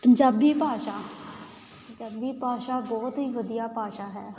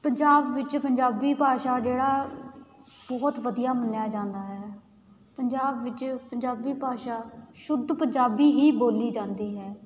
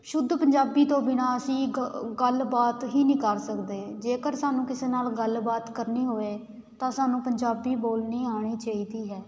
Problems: constant background noise